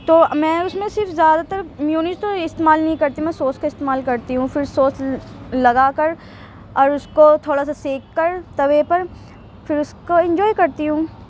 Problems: constant background noise, background conversations at intervals